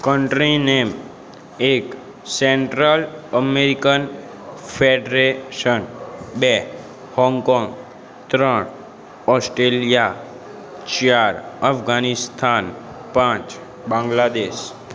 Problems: constant background noise